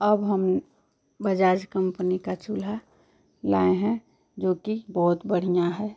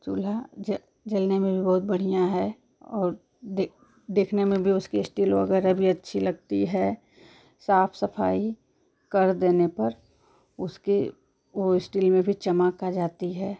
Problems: constant background noise